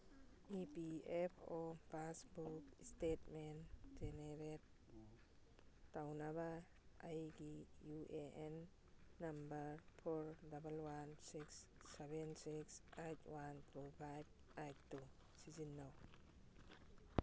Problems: none marked